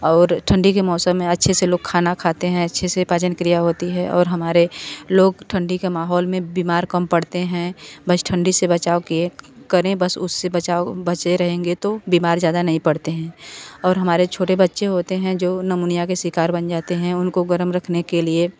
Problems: none marked